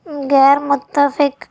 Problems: none marked